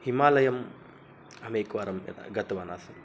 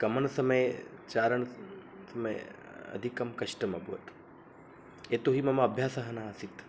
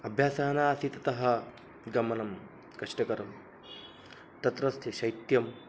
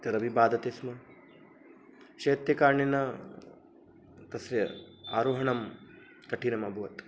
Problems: constant background noise